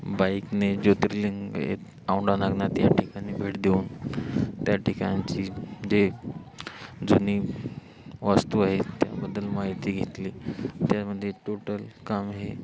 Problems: none marked